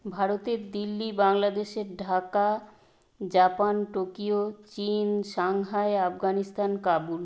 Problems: none marked